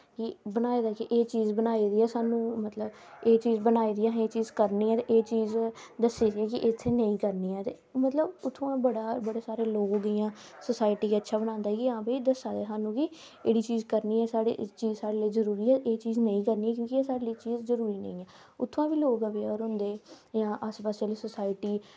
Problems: constant background noise